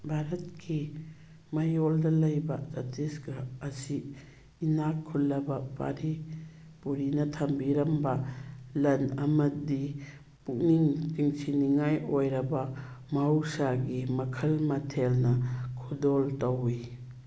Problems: background sounds at intervals